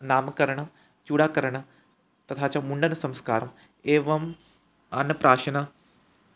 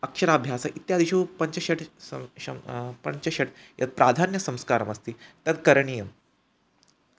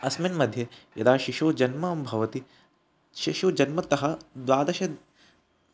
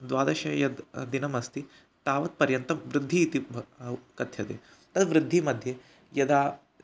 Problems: none marked